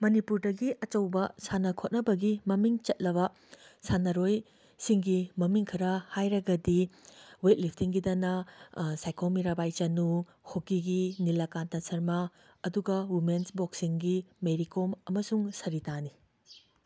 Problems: background sounds at intervals